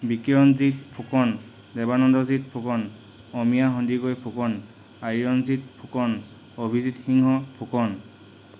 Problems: constant background noise